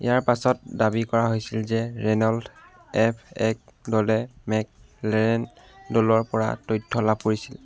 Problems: none marked